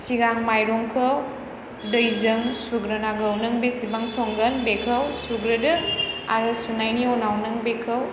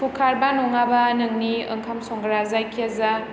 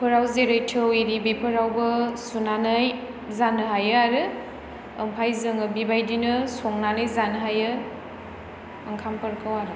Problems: none marked